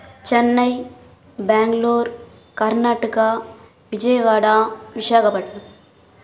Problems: none marked